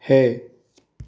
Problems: low volume